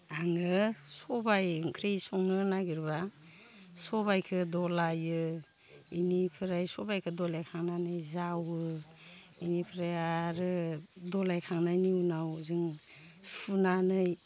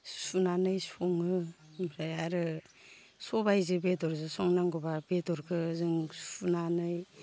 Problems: none marked